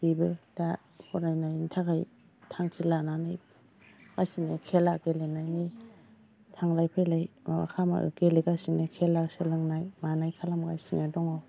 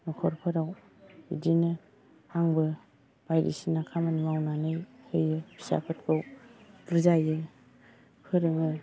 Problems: background sounds at intervals, low volume